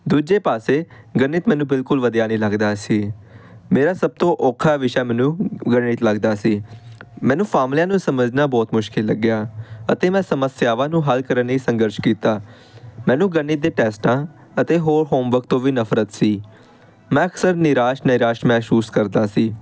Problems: constant background noise